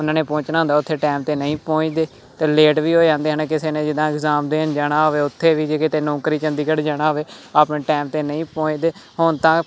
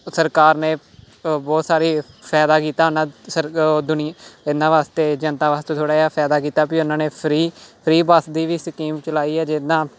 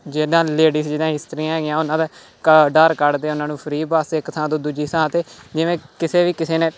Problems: none marked